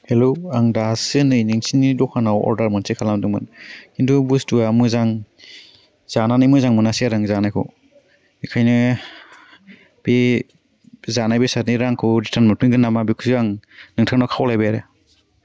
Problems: none marked